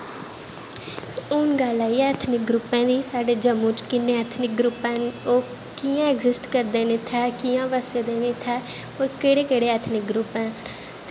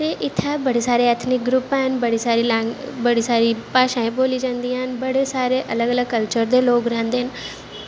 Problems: constant background noise